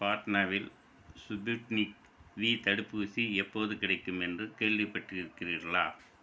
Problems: constant background noise